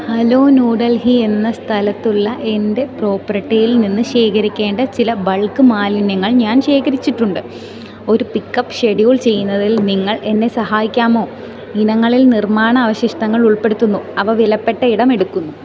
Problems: continuous background conversations, low volume